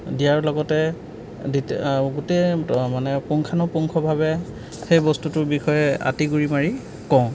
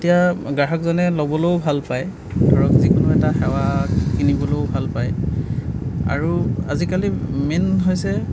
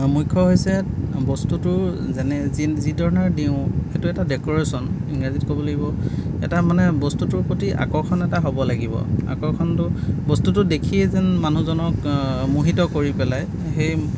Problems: background sounds at intervals